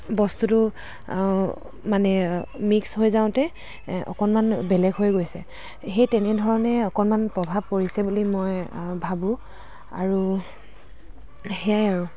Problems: constant background noise, background conversations at intervals